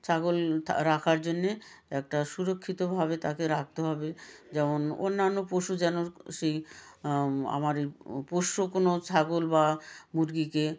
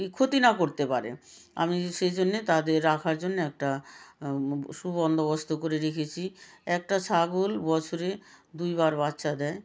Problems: none marked